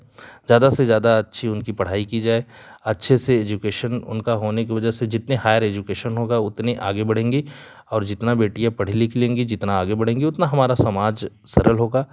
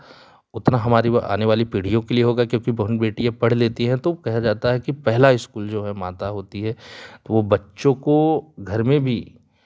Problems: none marked